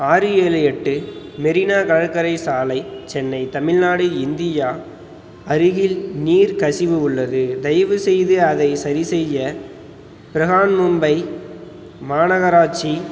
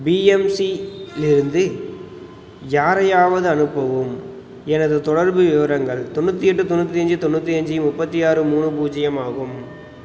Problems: background sounds at intervals